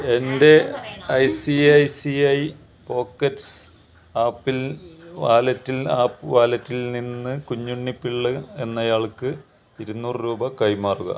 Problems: constant background noise, background conversations at intervals